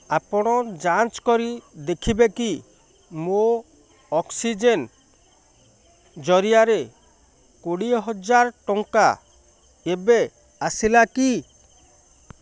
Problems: none marked